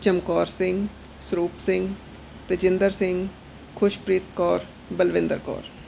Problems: background sounds at intervals